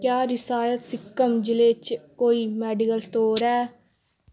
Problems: background sounds at intervals